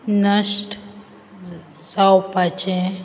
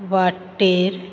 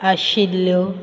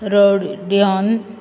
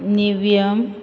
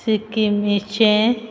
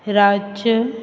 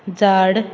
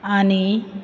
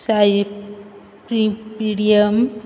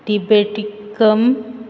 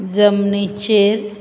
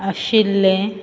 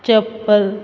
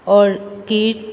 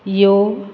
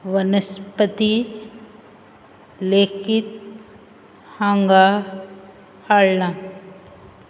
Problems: none marked